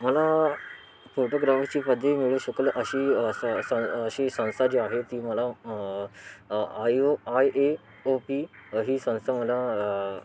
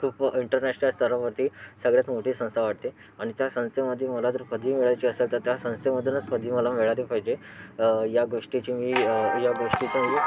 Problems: constant background noise, background conversations at intervals